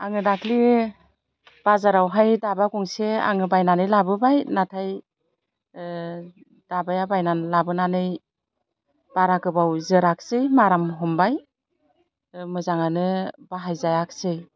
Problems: none marked